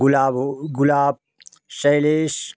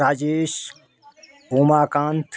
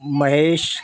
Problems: continuous background conversations